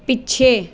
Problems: background sounds at intervals